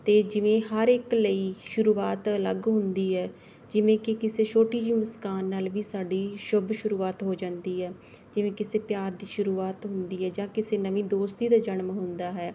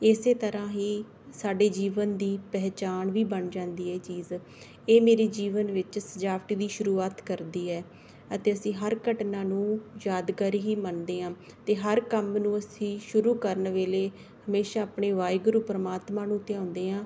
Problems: background sounds at intervals